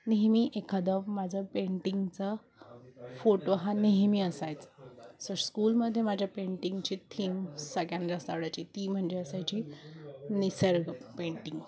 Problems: constant background noise, continuous background conversations